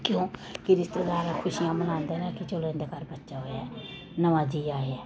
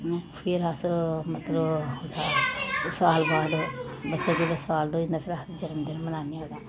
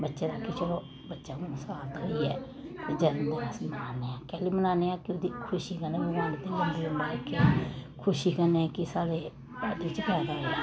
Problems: background sounds at intervals